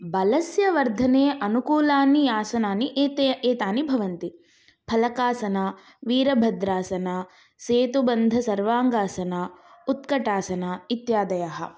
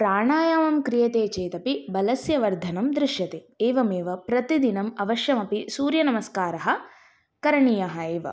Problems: none marked